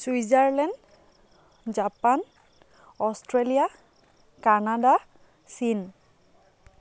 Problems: constant background noise